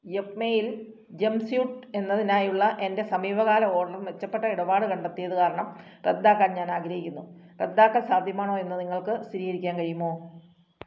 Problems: none marked